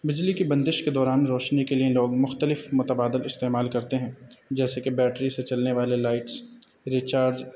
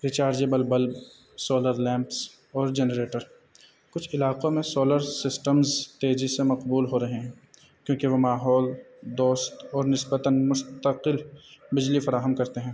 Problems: background sounds at intervals